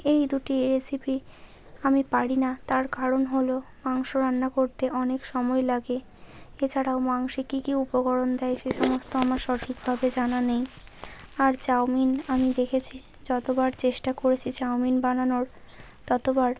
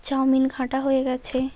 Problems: constant background noise